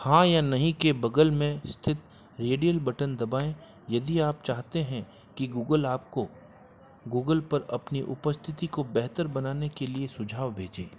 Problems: constant background noise, background conversations at intervals